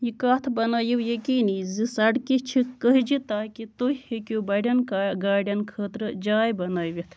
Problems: constant background noise